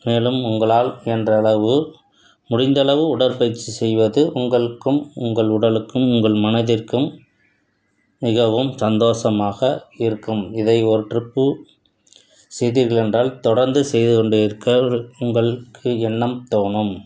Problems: none marked